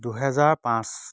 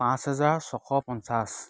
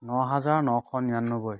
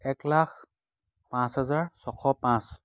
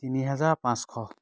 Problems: none marked